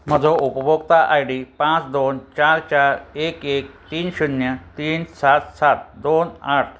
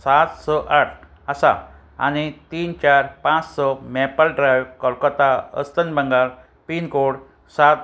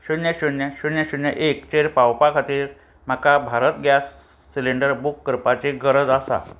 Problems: constant background noise